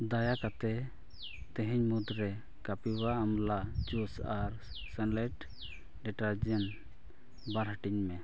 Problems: low volume